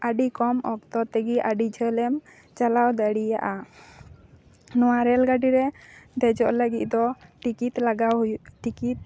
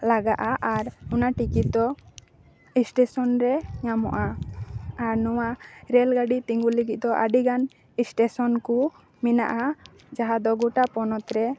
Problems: background conversations at intervals